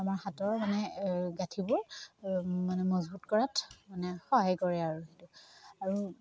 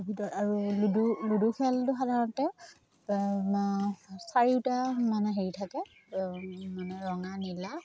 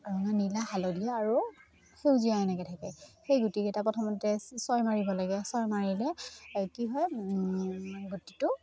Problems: none marked